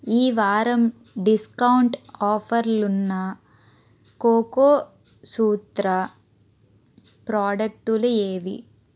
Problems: constant background noise